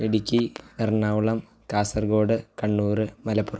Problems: low volume